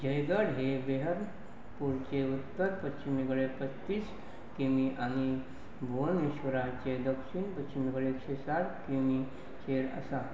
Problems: background sounds at intervals